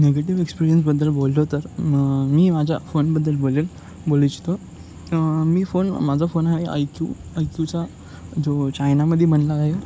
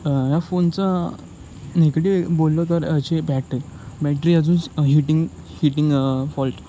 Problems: none marked